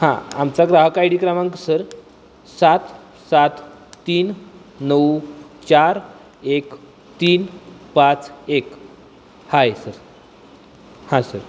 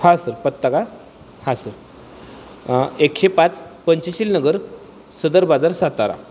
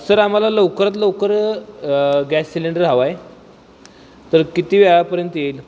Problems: constant background noise